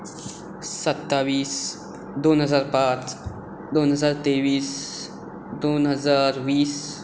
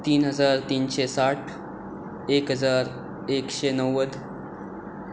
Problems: constant background noise